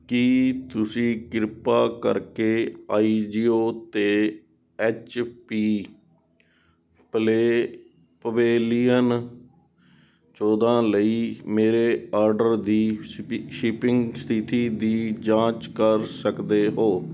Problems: none marked